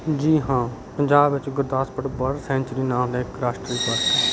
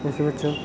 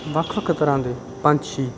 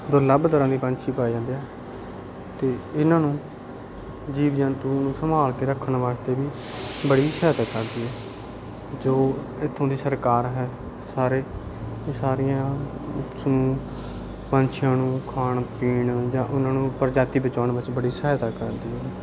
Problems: none marked